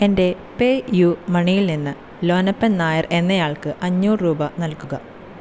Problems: constant background noise